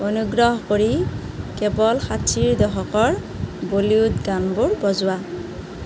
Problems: constant background noise